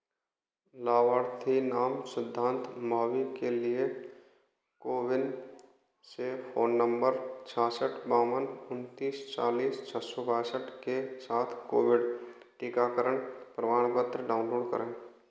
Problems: none marked